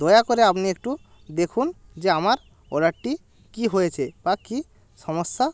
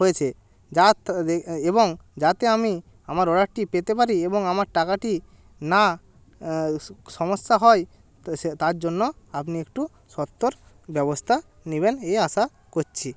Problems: background sounds at intervals